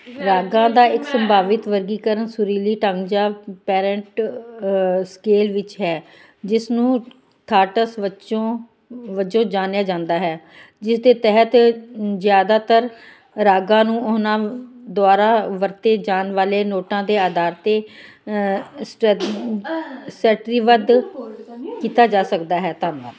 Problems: continuous background conversations